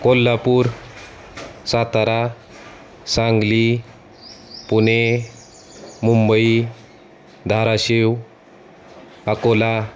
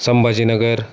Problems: constant background noise